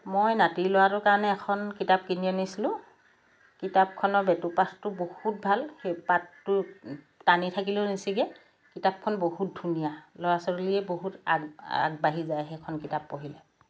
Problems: none marked